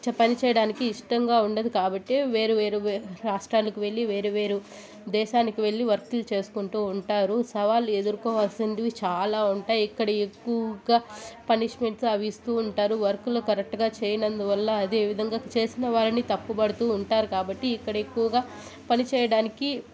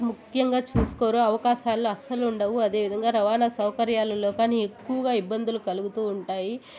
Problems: constant background noise, continuous background conversations